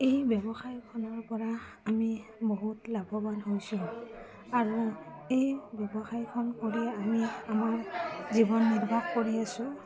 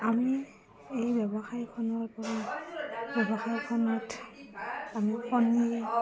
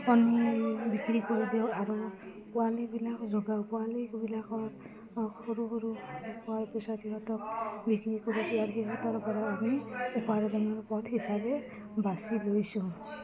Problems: none marked